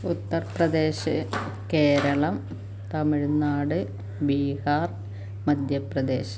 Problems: constant background noise